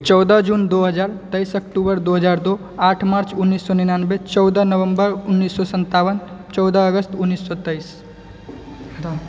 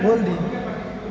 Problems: background sounds at intervals, background conversations at intervals